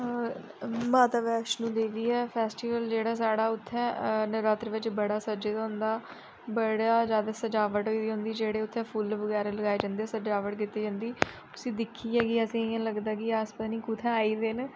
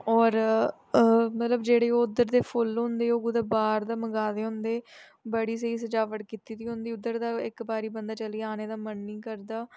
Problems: none marked